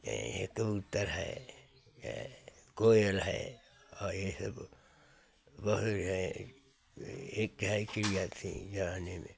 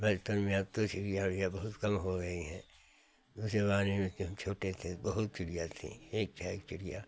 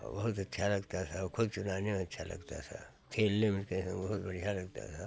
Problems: none marked